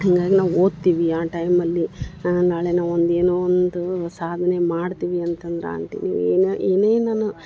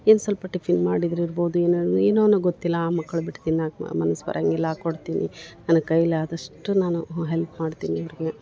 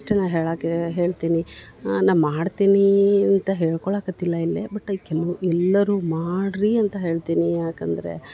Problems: background sounds at intervals